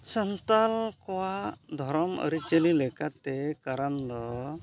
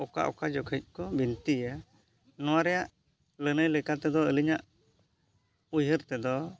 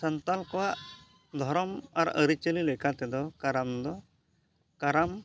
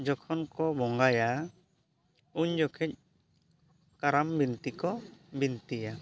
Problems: background conversations at intervals